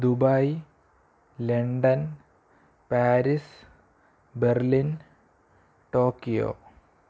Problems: low volume